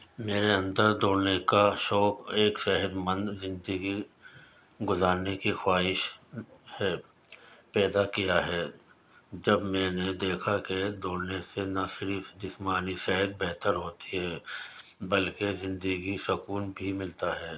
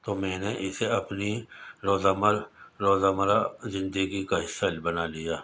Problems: constant background noise